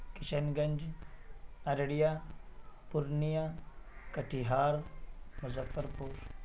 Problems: constant background noise